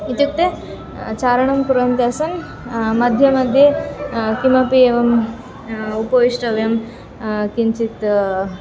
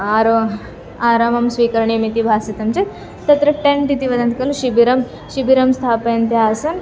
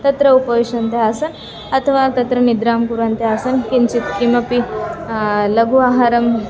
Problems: background sounds at intervals